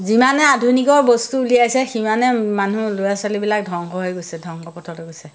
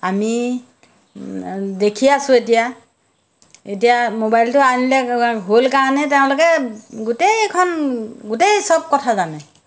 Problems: none marked